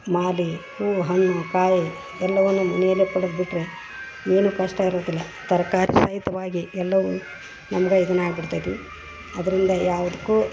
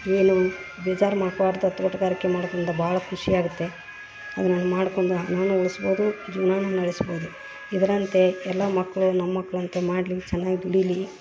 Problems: none marked